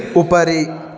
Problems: continuous background conversations